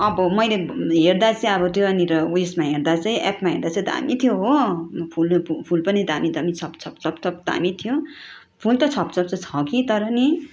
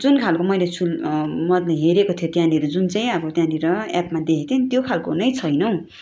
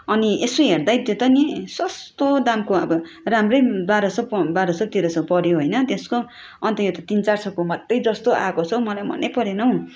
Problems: constant background noise, background conversations at intervals